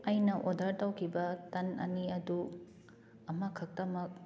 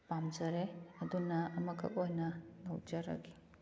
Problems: background sounds at intervals, low volume